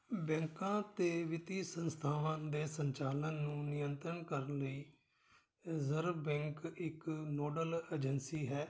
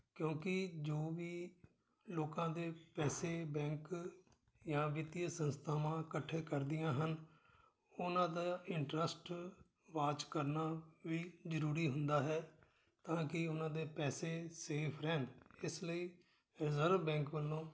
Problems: none marked